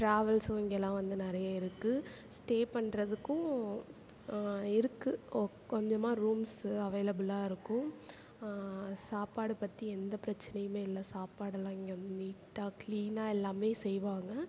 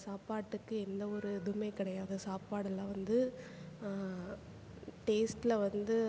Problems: low volume